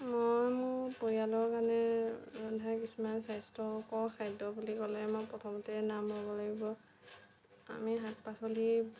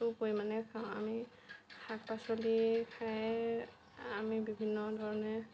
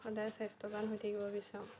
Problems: none marked